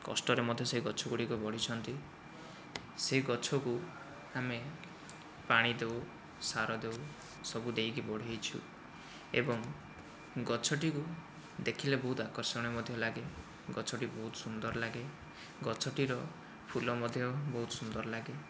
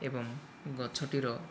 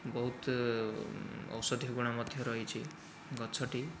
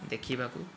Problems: low volume